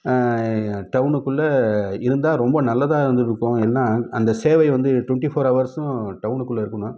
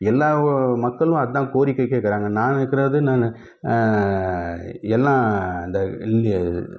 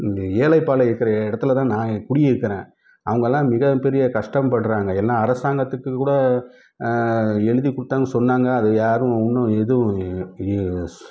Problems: none marked